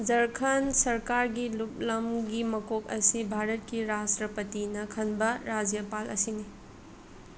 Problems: none marked